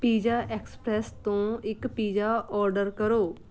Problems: background sounds at intervals